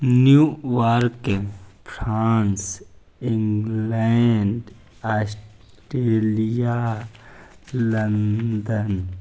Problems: none marked